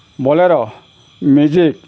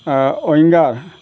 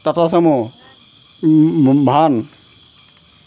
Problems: none marked